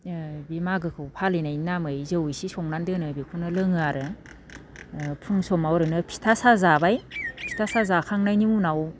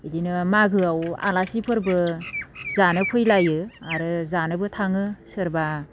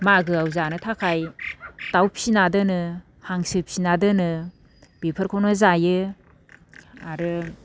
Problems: none marked